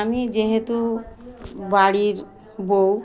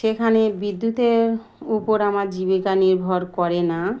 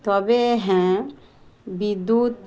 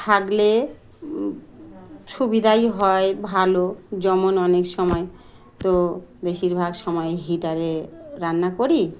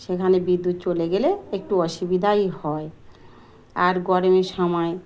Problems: background sounds at intervals, background conversations at intervals